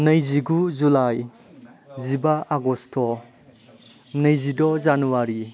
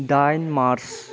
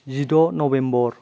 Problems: low volume